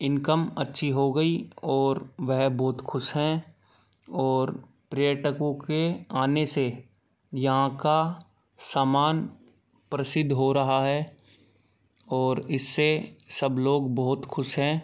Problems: none marked